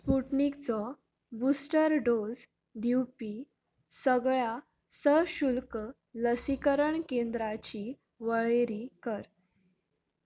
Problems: none marked